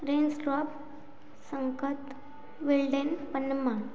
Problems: none marked